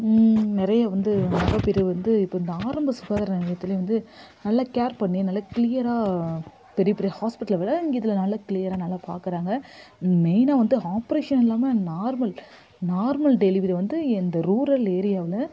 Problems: background sounds at intervals